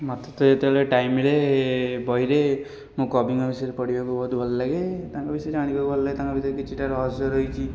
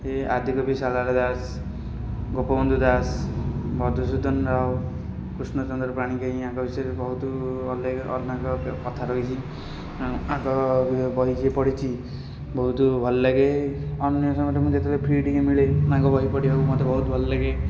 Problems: background sounds at intervals